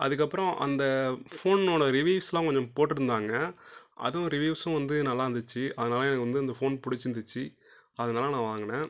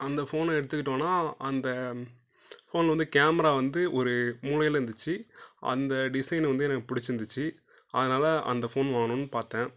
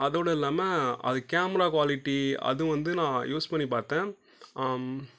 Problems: low volume